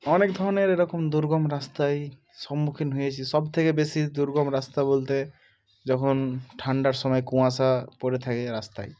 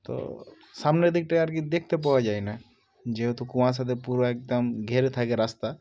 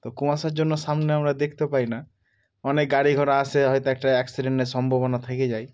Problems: background sounds at intervals